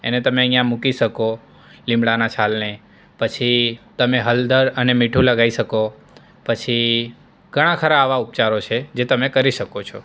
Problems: none marked